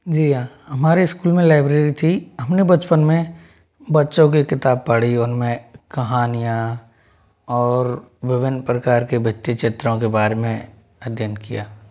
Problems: background sounds at intervals